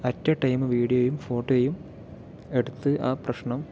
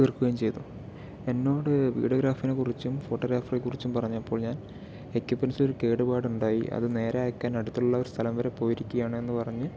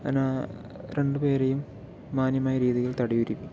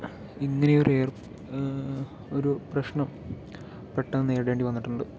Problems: background conversations at intervals